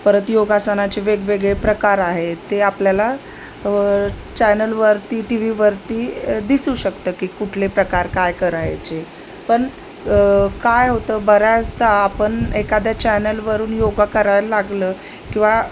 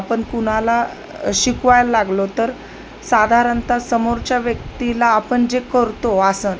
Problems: constant background noise